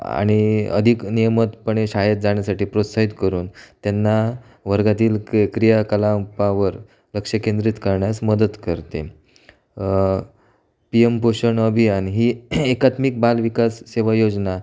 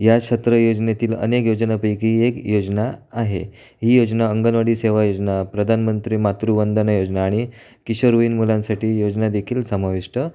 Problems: none marked